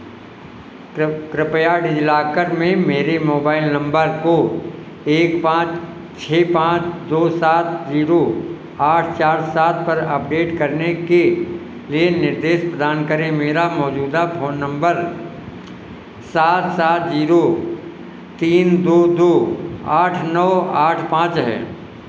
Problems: constant background noise